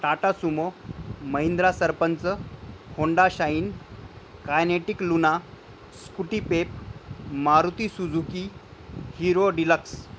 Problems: none marked